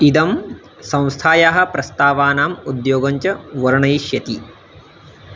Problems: constant background noise